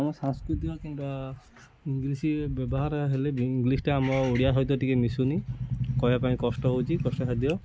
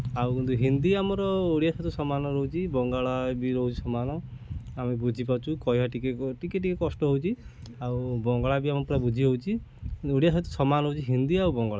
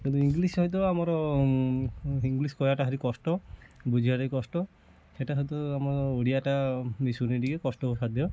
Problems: constant background noise, continuous background conversations